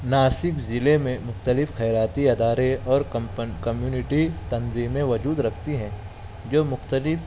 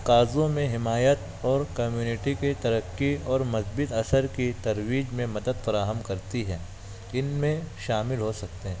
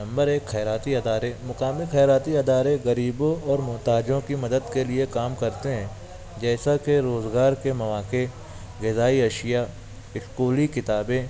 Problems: constant background noise, continuous background conversations